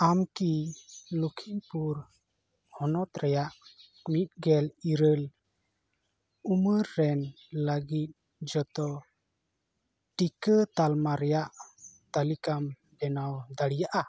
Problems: background sounds at intervals